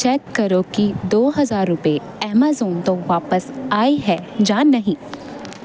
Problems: constant background noise